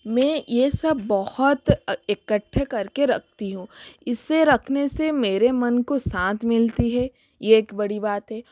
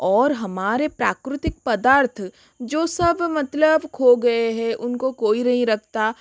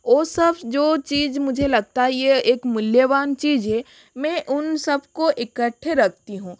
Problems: none marked